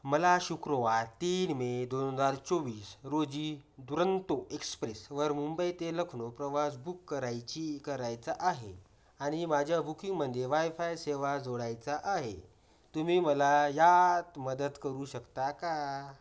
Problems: background sounds at intervals